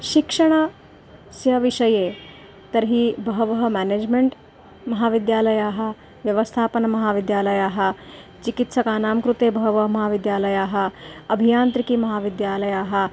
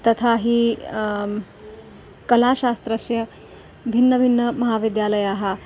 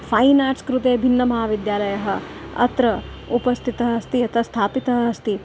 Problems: background sounds at intervals